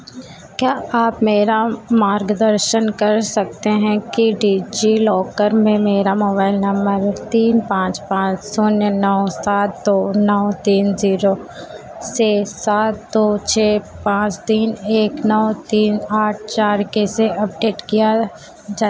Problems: constant background noise